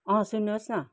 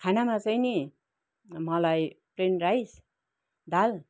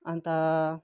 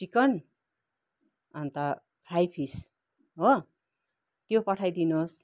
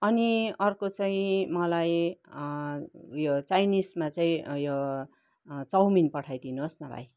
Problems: none marked